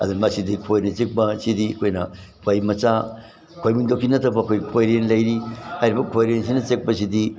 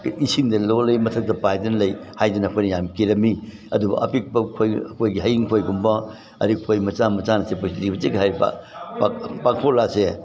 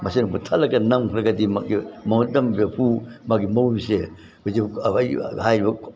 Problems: background sounds at intervals